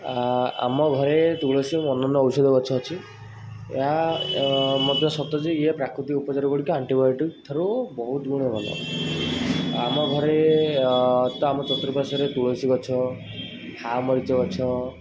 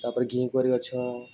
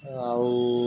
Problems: constant background noise